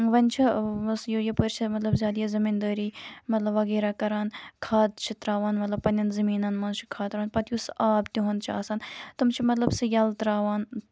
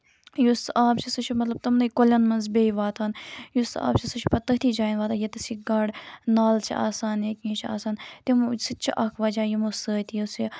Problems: constant background noise